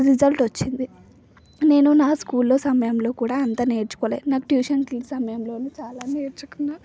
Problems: constant background noise